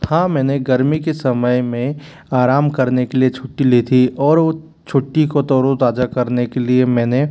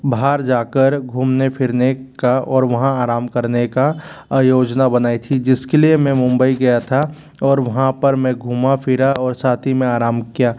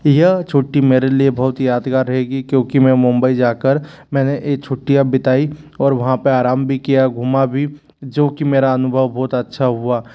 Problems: constant background noise